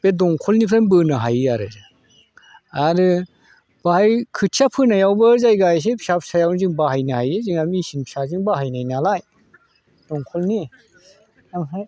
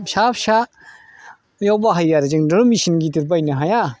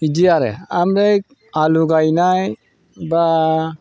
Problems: none marked